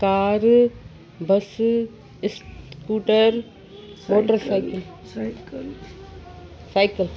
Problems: constant background noise, background conversations at intervals